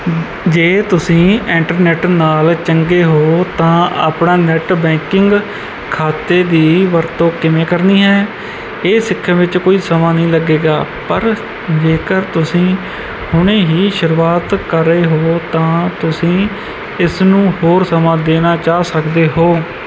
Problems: none marked